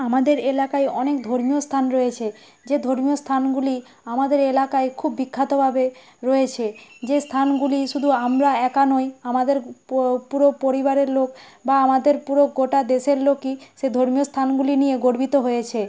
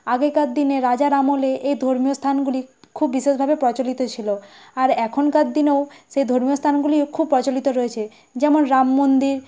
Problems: background sounds at intervals